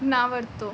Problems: background sounds at intervals